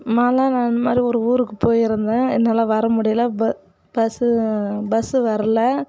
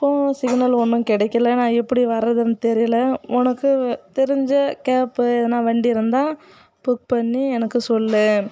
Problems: constant background noise